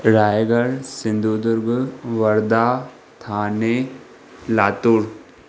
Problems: none marked